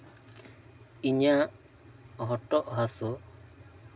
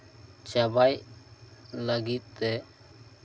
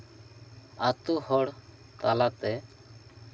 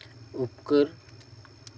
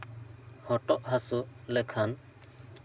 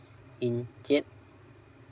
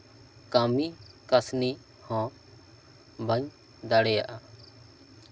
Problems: background conversations at intervals